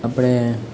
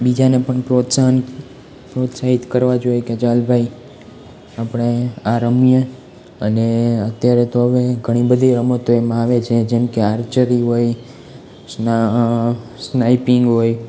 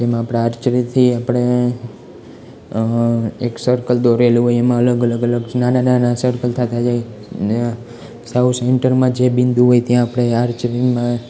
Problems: constant background noise